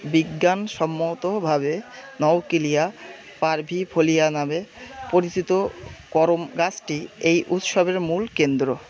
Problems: constant background noise, background conversations at intervals